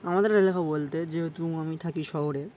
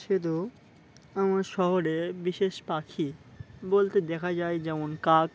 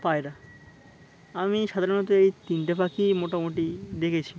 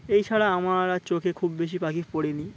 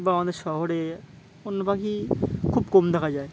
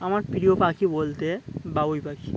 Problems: constant background noise, background conversations at intervals